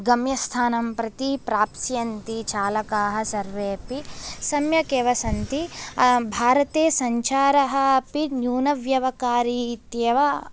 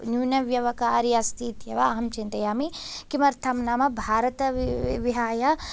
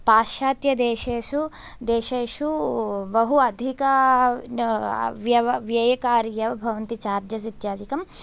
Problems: none marked